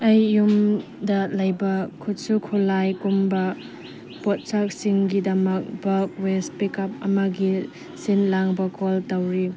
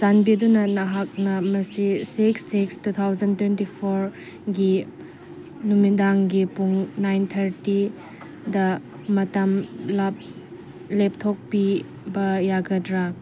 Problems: background sounds at intervals